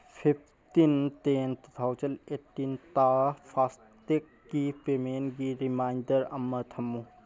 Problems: background sounds at intervals